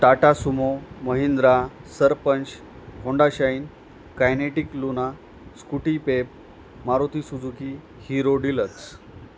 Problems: constant background noise